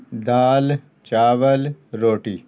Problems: none marked